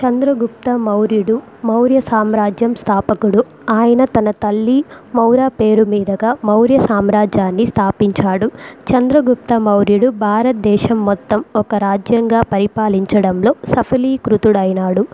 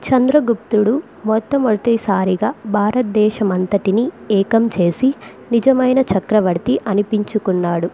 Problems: background sounds at intervals